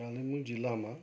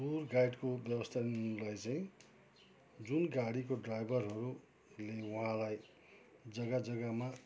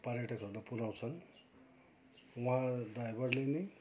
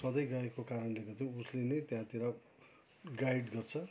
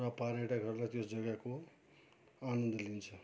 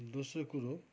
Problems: background sounds at intervals, background conversations at intervals